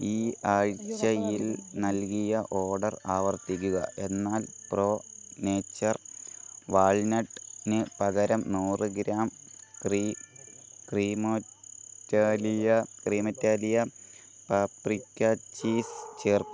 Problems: background sounds at intervals, background conversations at intervals